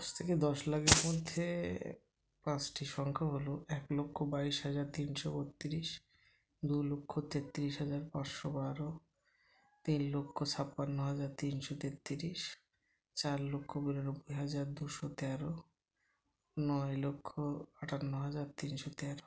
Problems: constant background noise